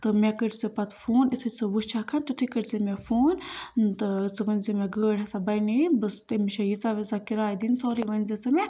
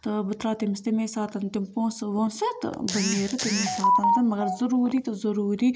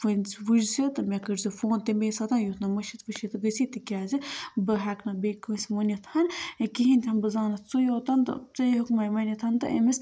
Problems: constant background noise